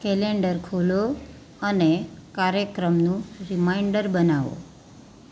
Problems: none marked